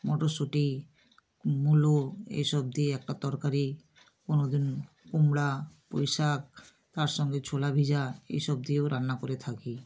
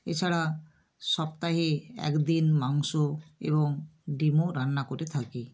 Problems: none marked